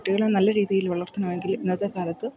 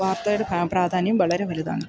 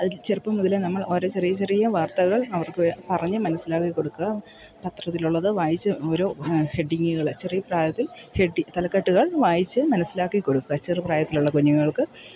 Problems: background sounds at intervals